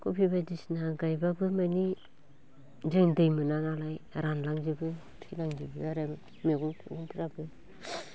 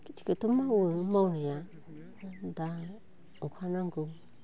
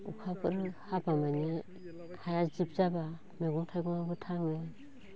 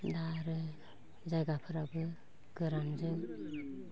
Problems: none marked